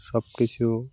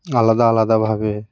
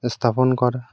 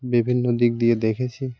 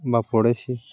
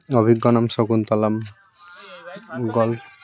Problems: constant background noise